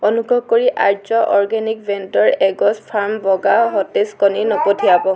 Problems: background conversations at intervals